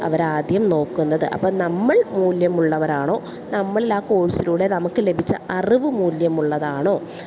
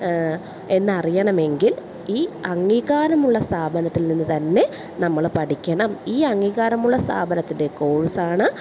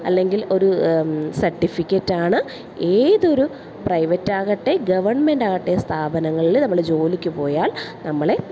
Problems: none marked